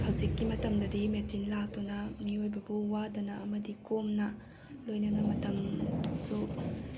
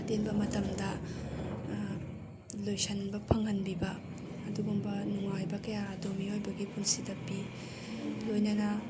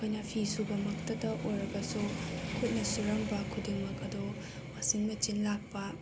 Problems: none marked